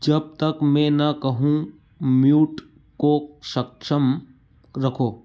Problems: none marked